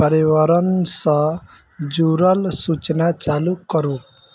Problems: background sounds at intervals